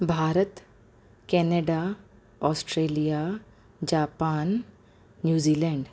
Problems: constant background noise, echo